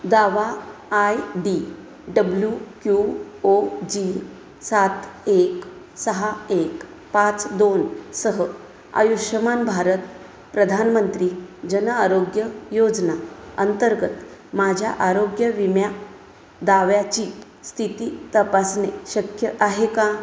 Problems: none marked